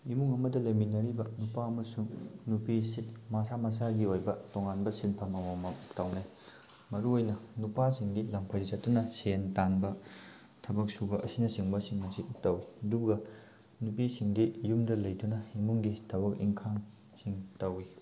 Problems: background sounds at intervals